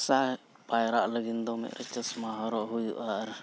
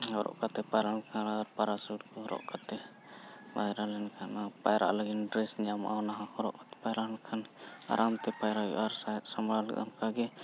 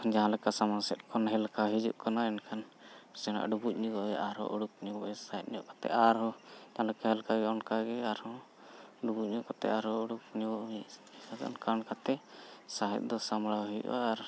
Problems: none marked